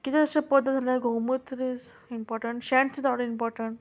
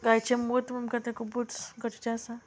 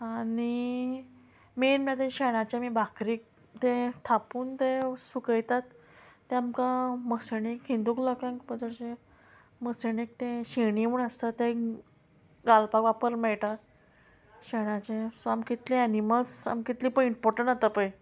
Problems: constant background noise